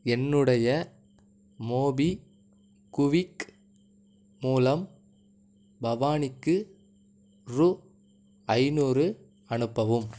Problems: none marked